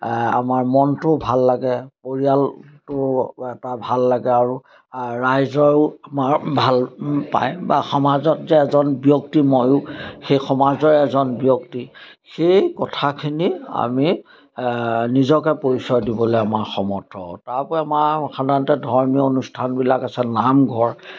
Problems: constant background noise